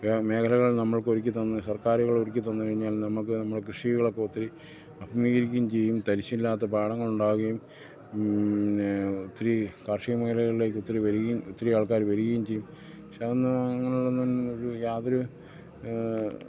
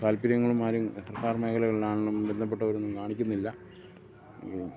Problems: low volume